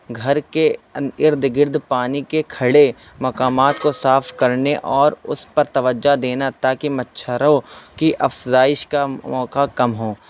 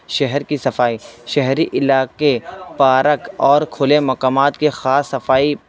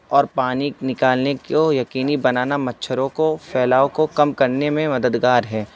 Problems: constant background noise, background conversations at intervals